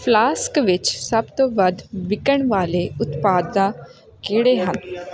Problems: constant background noise